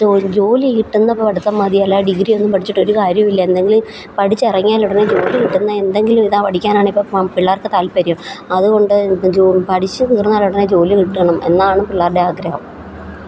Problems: constant background noise